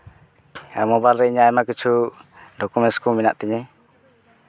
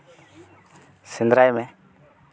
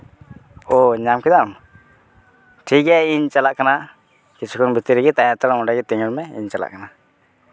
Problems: constant background noise, background conversations at intervals